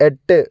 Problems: none marked